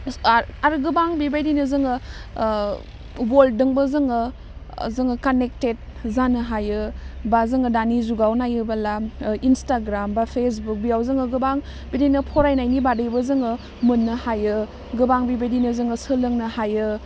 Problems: none marked